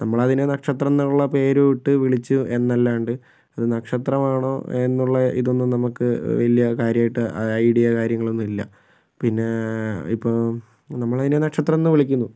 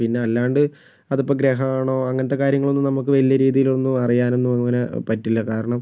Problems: none marked